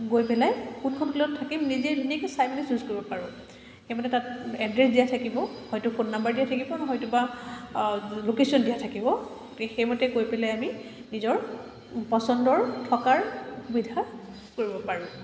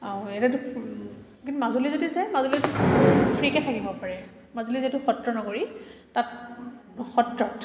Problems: constant background noise, echo